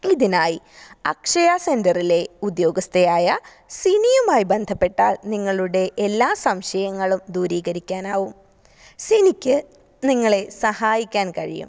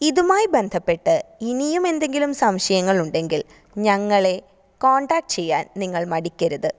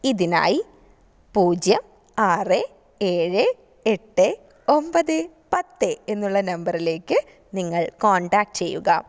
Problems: none marked